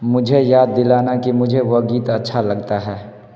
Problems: constant background noise